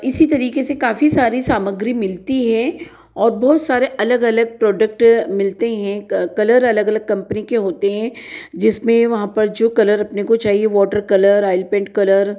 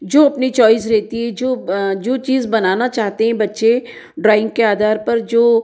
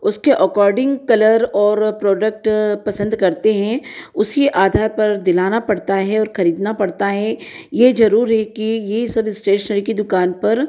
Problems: none marked